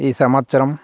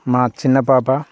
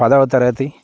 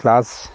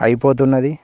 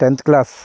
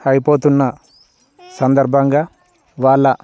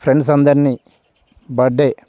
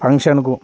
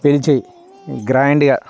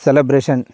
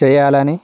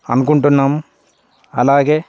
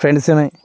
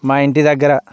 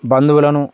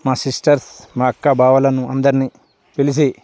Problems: background sounds at intervals, background conversations at intervals